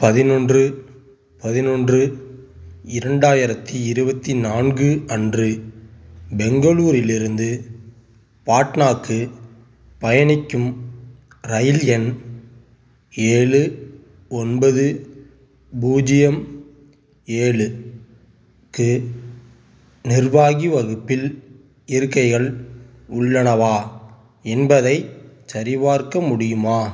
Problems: background sounds at intervals